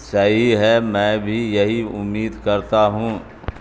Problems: constant background noise